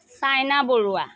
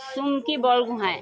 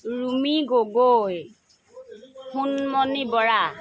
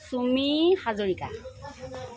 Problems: continuous background conversations